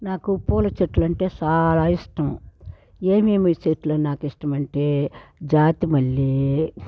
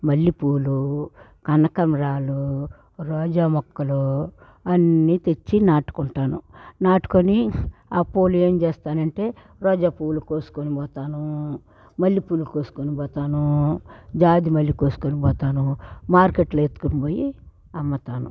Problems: background sounds at intervals